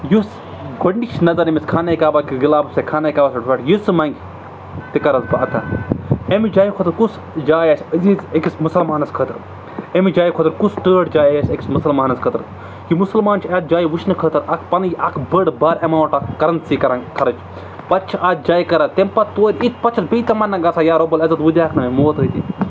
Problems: none marked